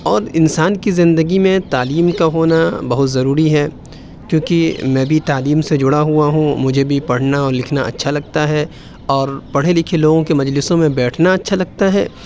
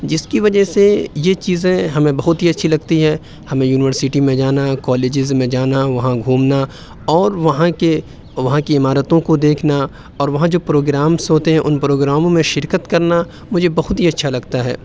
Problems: constant background noise